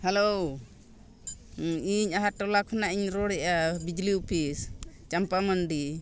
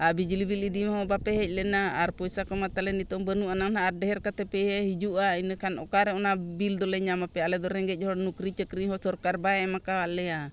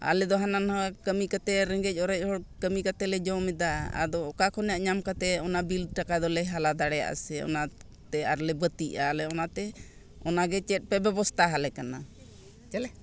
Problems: constant background noise